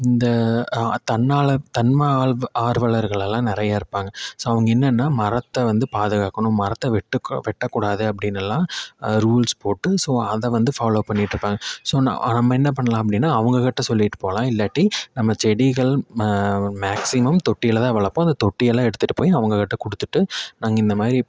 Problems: none marked